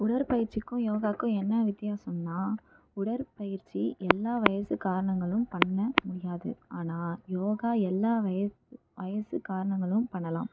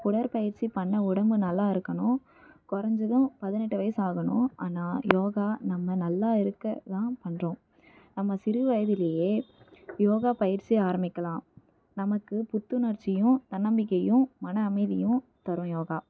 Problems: low volume